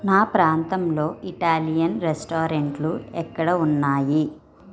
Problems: background sounds at intervals, continuous background conversations